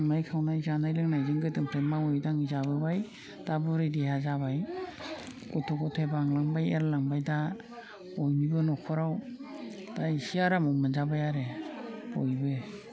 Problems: low volume